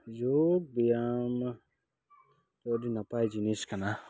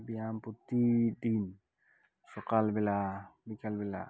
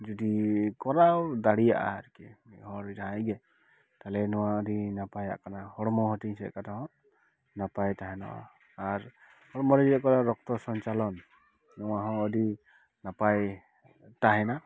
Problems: none marked